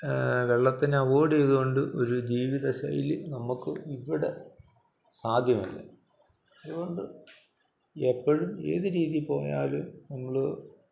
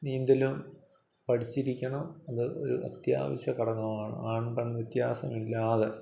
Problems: none marked